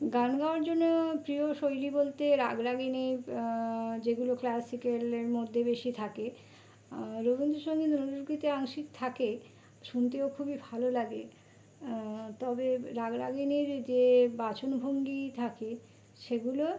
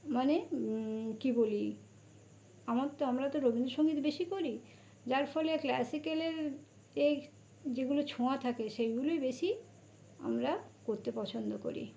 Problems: none marked